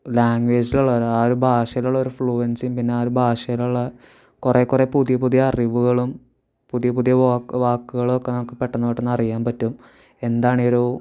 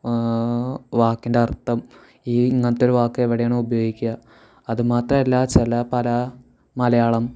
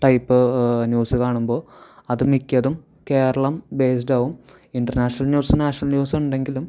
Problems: none marked